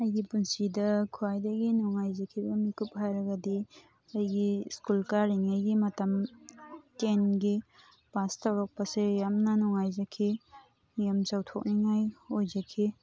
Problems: background sounds at intervals, background conversations at intervals